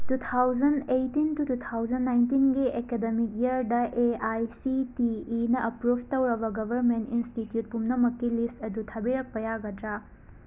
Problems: background sounds at intervals